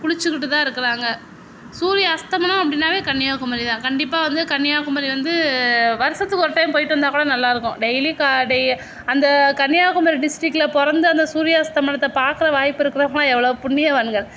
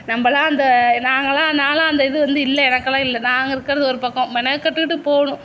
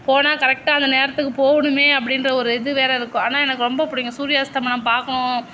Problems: none marked